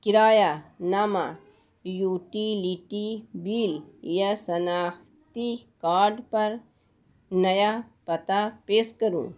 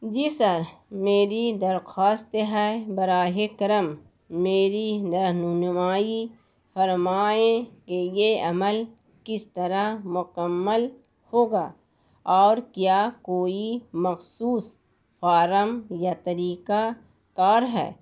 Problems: constant background noise